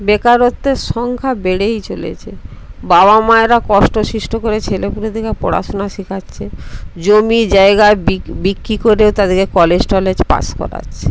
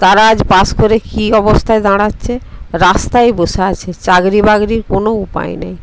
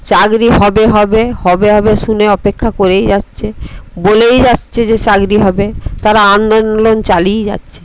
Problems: constant background noise